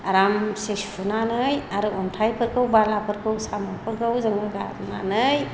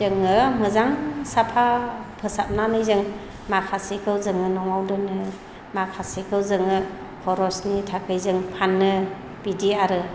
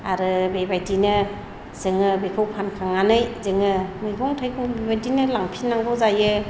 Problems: low volume